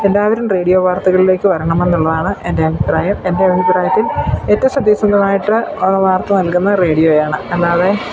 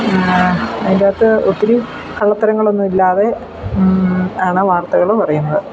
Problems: none marked